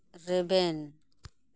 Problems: none marked